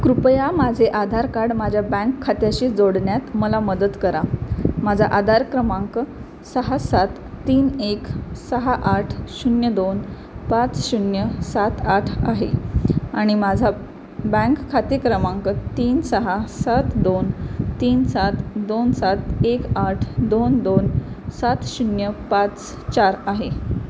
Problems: constant background noise